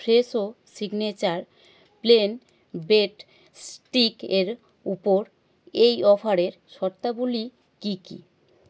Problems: none marked